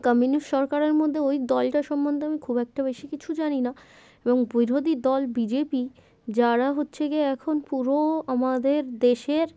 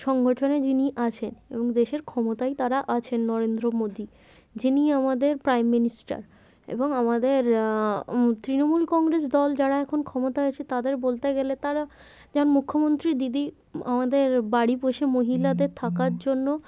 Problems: none marked